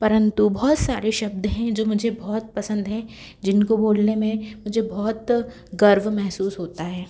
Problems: background sounds at intervals